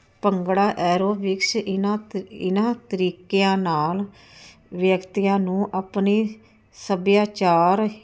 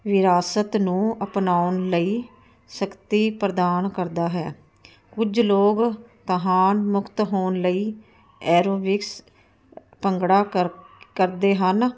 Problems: none marked